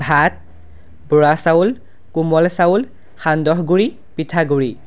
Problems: constant background noise